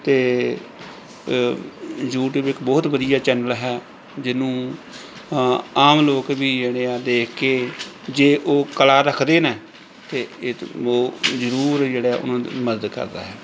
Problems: none marked